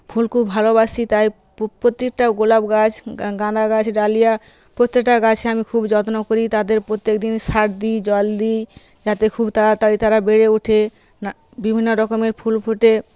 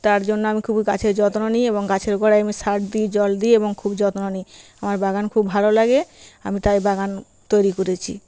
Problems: constant background noise